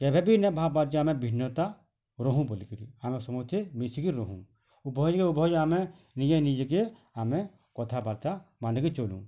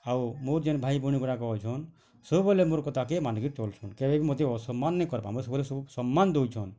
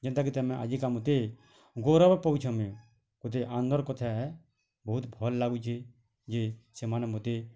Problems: none marked